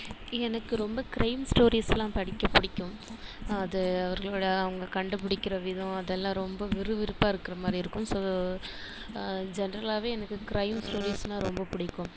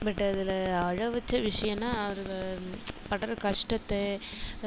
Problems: constant background noise